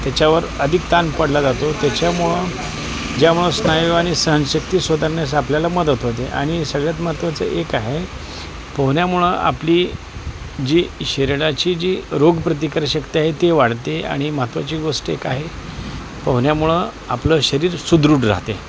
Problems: constant background noise, continuous background conversations